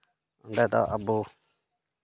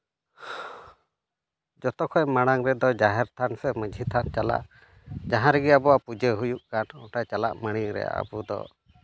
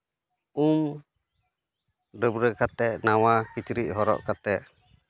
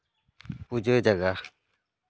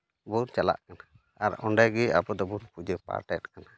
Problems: background sounds at intervals, background conversations at intervals